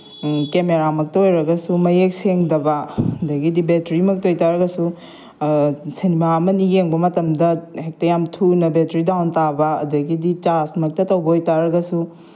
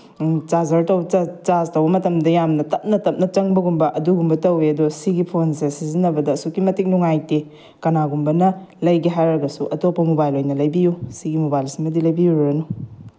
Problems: background sounds at intervals